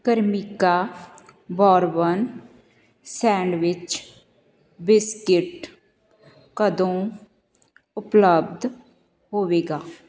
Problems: continuous background conversations